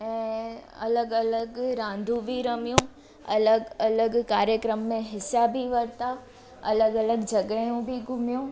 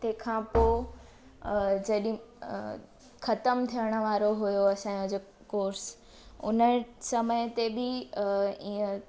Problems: constant background noise